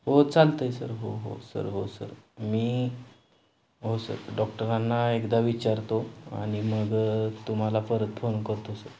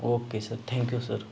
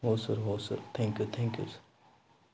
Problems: none marked